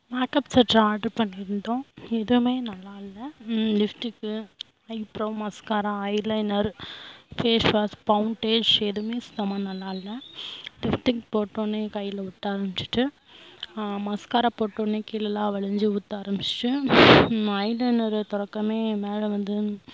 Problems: constant background noise